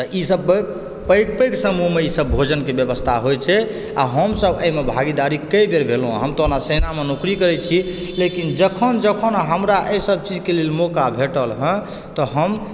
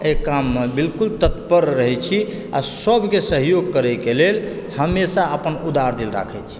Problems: background sounds at intervals